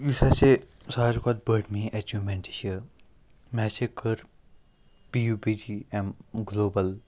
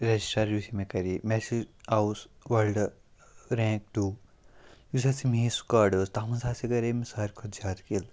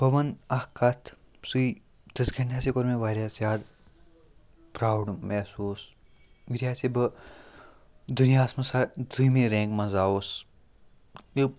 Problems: none marked